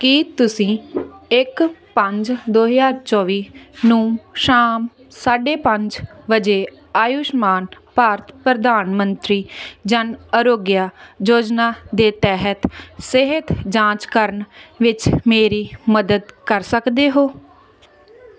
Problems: constant background noise